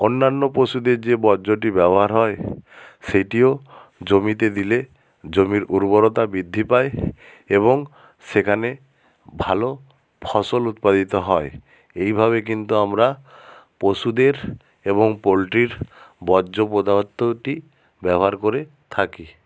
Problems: none marked